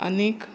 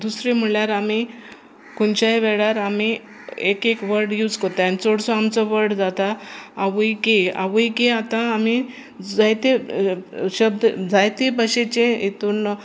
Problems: constant background noise